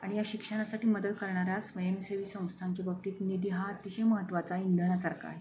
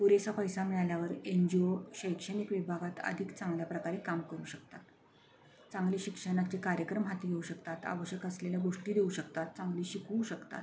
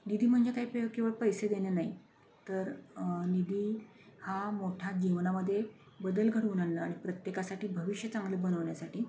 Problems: none marked